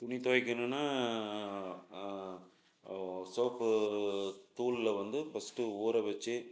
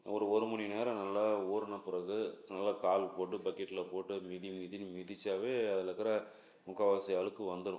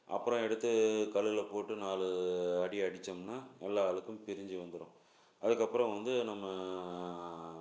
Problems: low volume